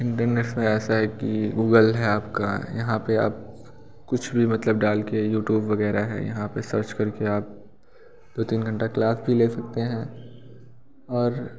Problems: background sounds at intervals